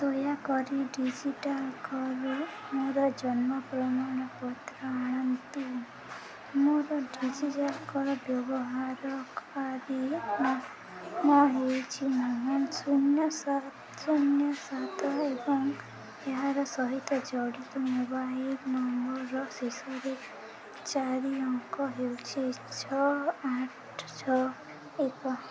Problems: none marked